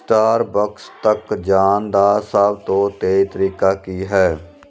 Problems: none marked